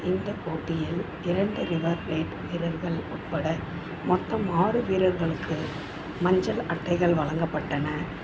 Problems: constant background noise, continuous background conversations